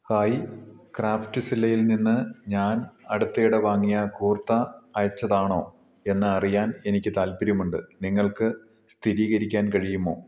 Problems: low volume